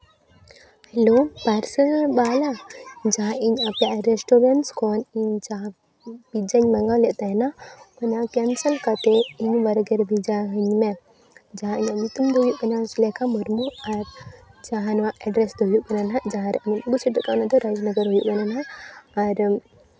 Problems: continuous background conversations